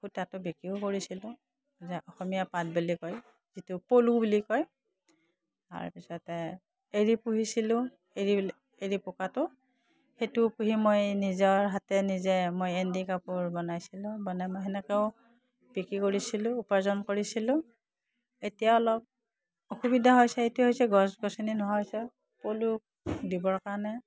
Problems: none marked